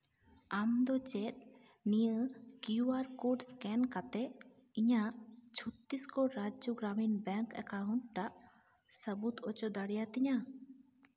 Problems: echo